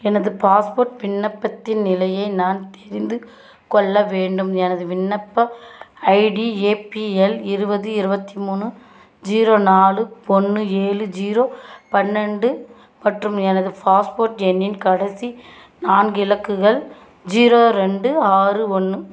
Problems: constant background noise